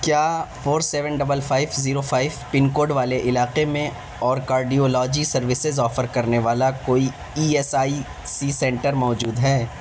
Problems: constant background noise